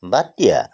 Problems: none marked